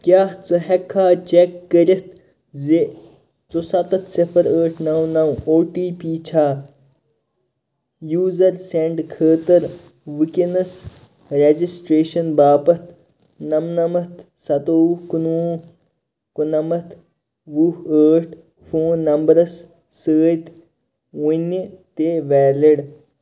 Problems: constant background noise